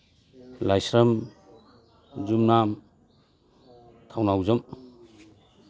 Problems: background sounds at intervals